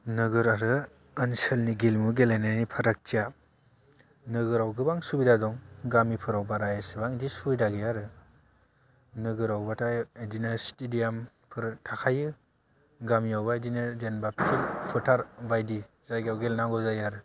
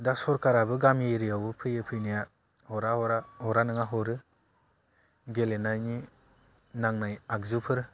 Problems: low volume